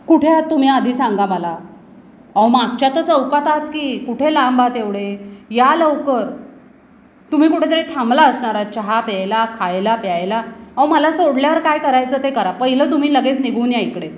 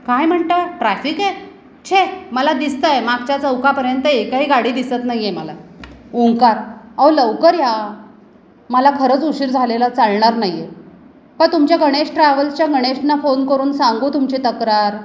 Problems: constant background noise